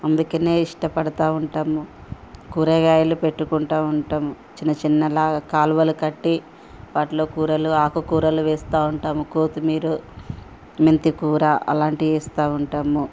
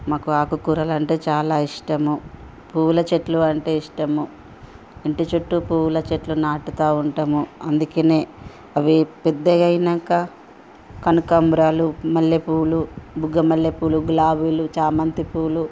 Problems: background sounds at intervals